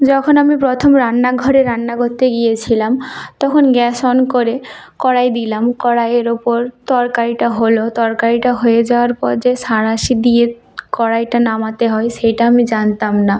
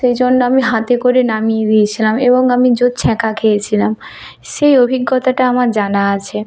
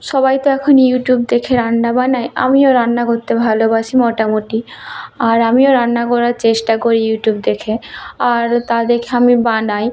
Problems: constant background noise